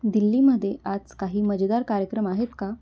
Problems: constant background noise, low volume